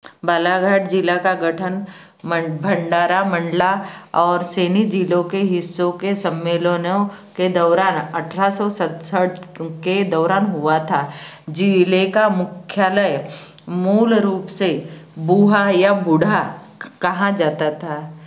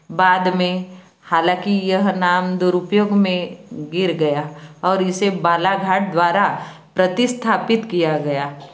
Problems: background sounds at intervals